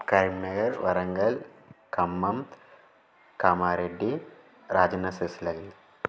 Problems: none marked